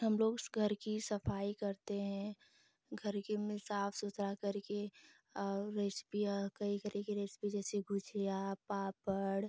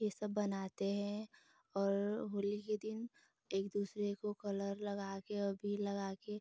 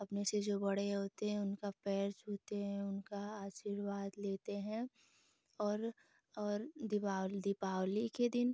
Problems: constant background noise